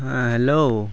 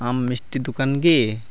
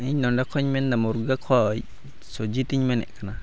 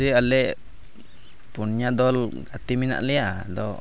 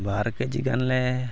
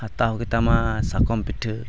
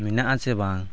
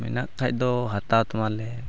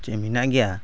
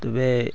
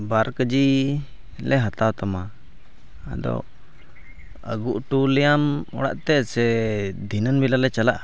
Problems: none marked